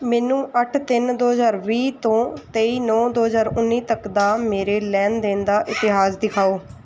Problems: background sounds at intervals